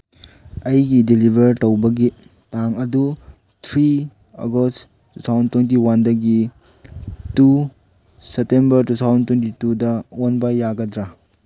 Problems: background sounds at intervals